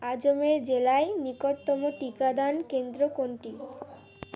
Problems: constant background noise, background conversations at intervals